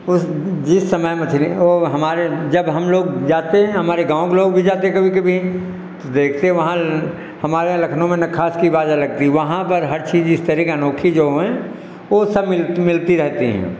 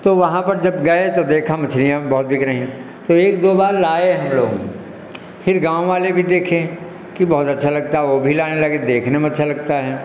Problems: none marked